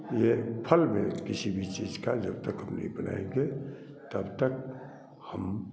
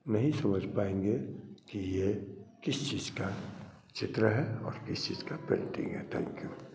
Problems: none marked